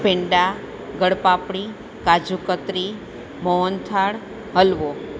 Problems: constant background noise